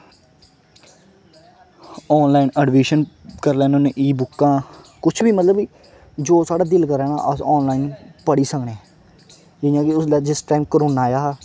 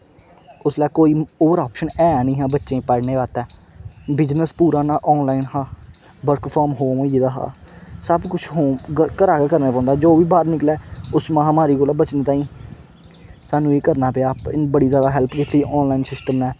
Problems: constant background noise